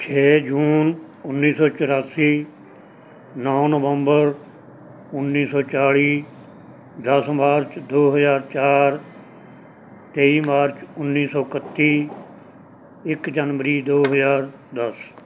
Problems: background sounds at intervals